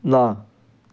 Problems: none marked